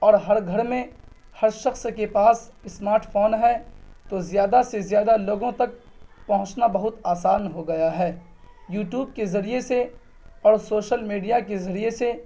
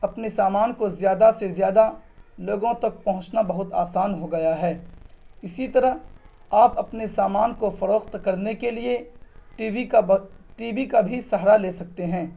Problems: none marked